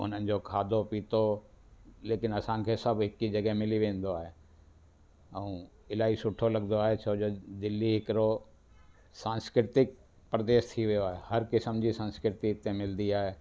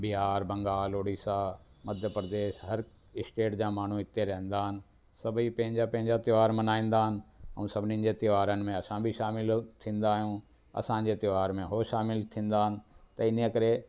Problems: constant background noise